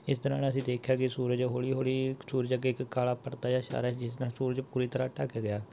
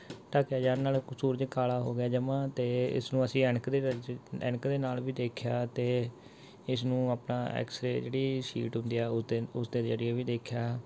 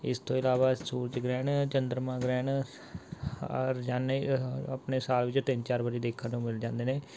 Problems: none marked